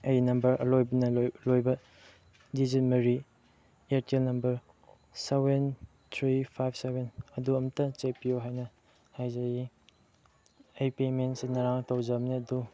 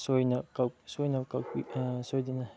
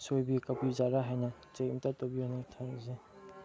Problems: background sounds at intervals, low volume